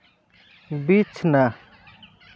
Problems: constant background noise